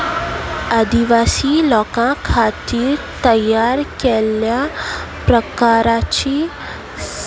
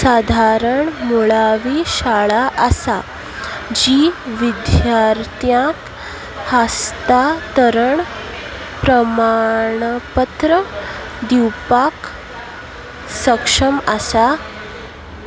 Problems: constant background noise, continuous background conversations